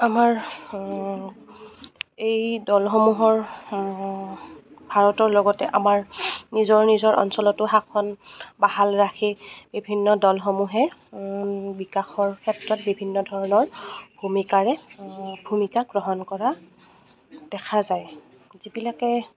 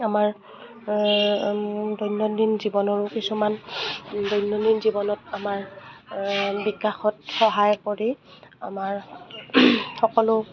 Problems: constant background noise, background conversations at intervals